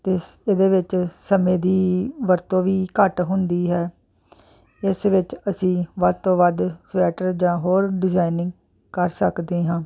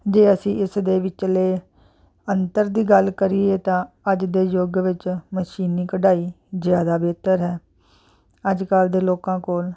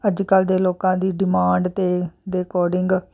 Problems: constant background noise